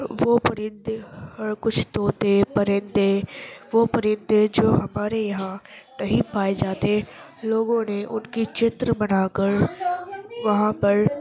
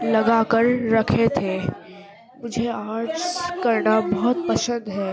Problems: constant background noise, continuous background conversations